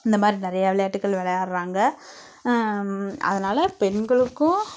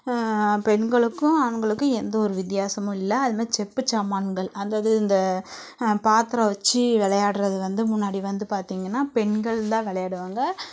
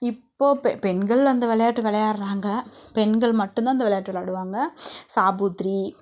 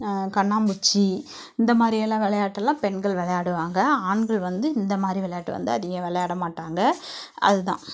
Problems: none marked